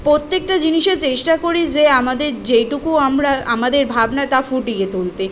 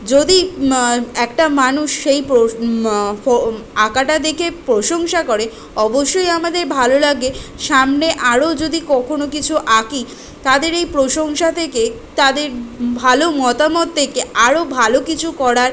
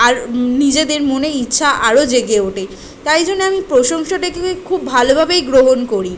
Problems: none marked